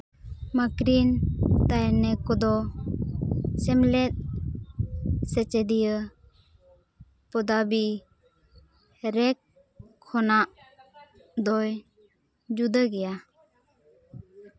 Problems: none marked